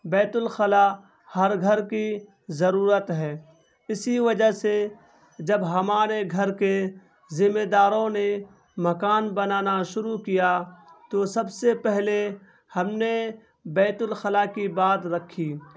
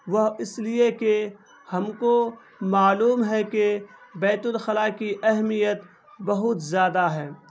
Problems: constant background noise